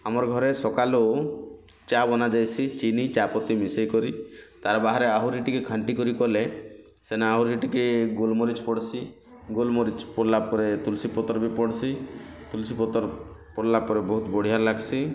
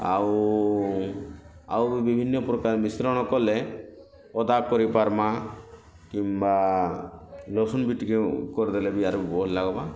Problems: constant background noise